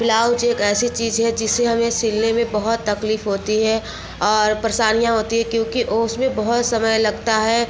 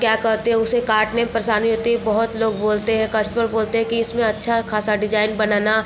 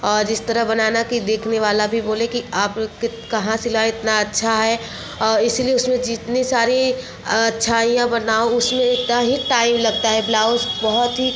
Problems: constant background noise